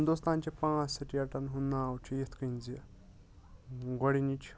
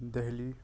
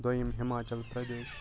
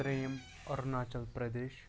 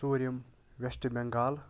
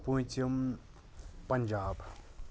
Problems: background sounds at intervals, background conversations at intervals